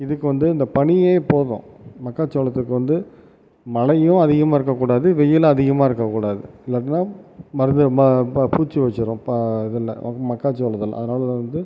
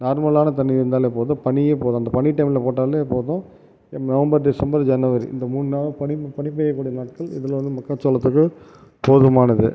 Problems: background sounds at intervals